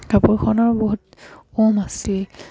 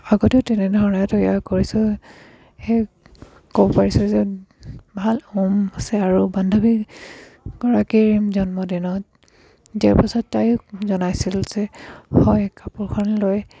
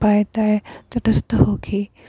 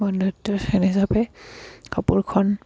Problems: background sounds at intervals, background conversations at intervals